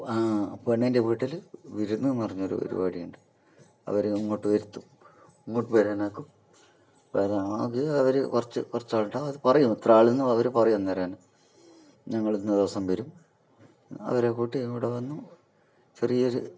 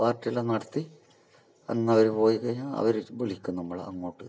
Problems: none marked